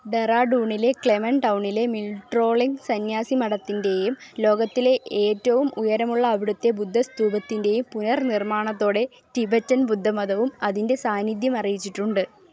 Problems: low volume